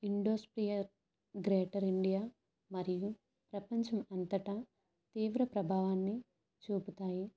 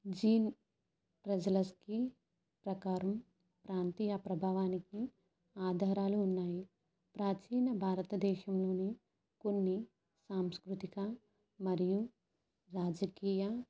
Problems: none marked